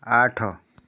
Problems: none marked